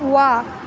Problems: constant background noise